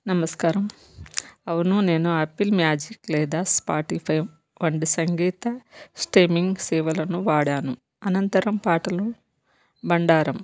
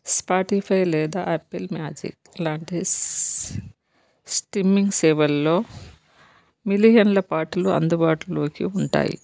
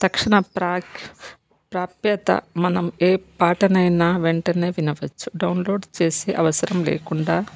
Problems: background sounds at intervals